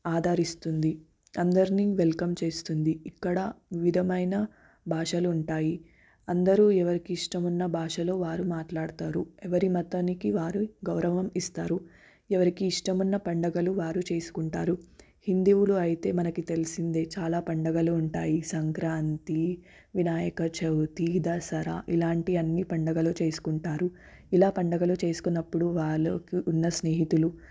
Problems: none marked